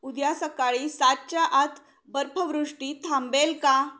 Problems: background sounds at intervals